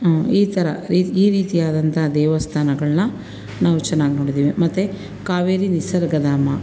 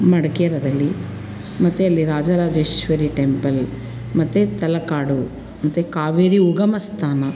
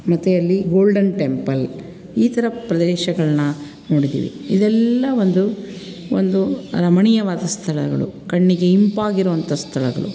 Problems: none marked